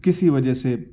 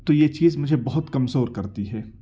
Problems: none marked